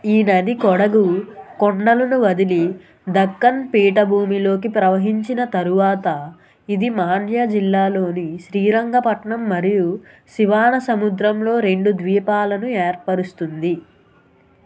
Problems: constant background noise